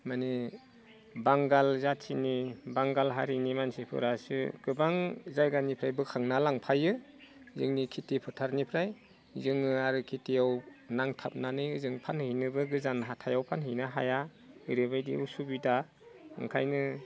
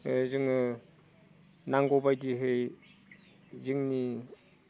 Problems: none marked